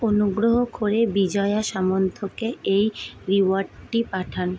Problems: constant background noise